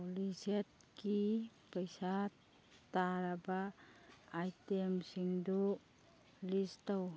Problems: background sounds at intervals